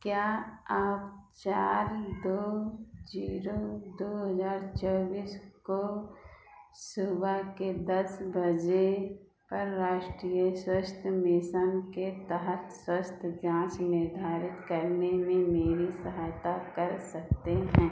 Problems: background sounds at intervals, echo